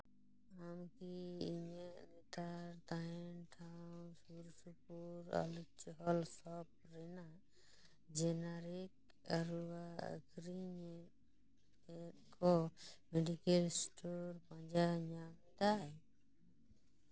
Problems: background sounds at intervals, low volume